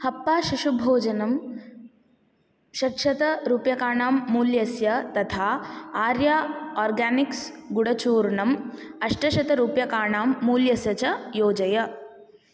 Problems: none marked